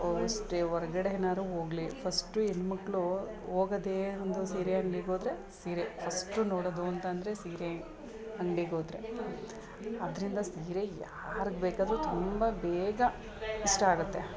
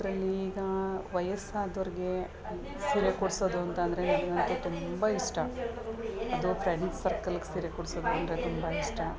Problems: background conversations at intervals